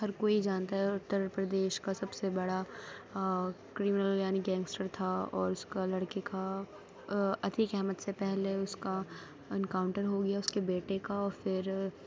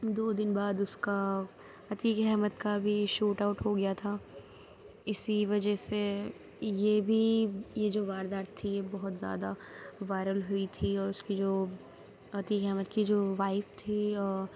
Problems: none marked